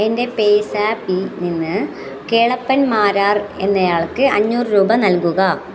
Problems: continuous background conversations